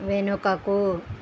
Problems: constant background noise